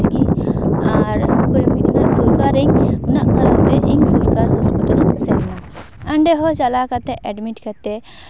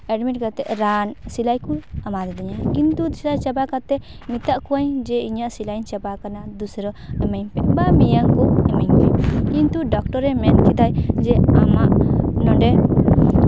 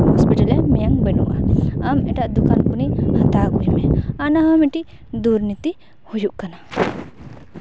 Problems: background sounds at intervals